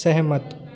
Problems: constant background noise, echo